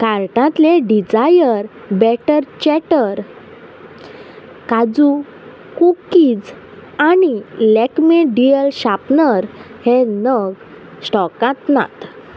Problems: none marked